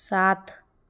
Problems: background sounds at intervals